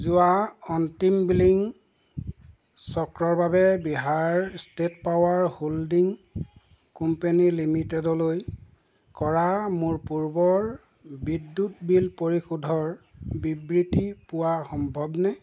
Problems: constant background noise